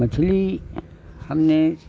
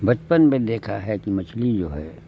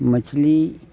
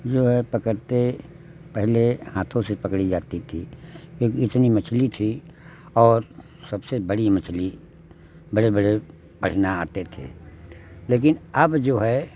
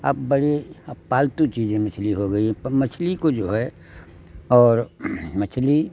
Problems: constant background noise